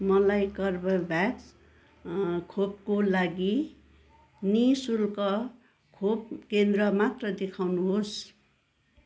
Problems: none marked